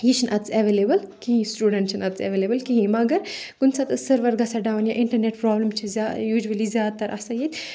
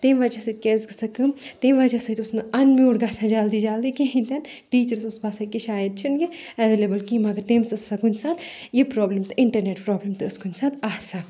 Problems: background sounds at intervals